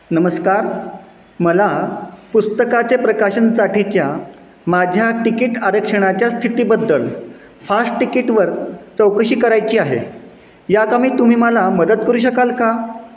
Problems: background sounds at intervals